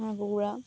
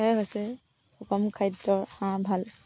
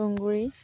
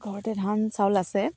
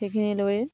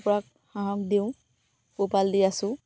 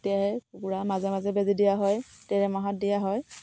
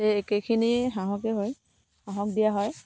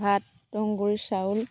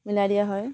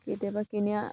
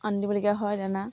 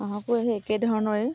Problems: constant background noise